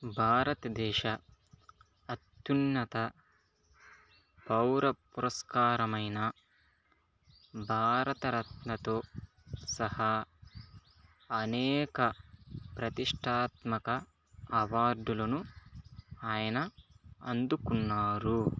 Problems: constant background noise, low volume